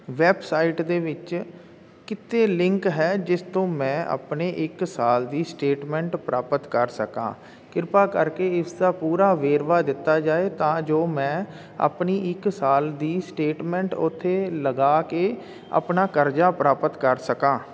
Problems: none marked